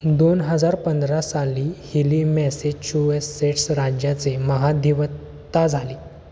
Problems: none marked